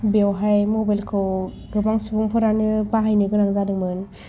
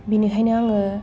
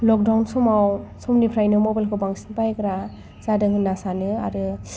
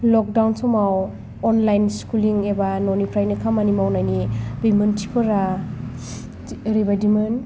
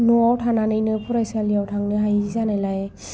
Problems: background sounds at intervals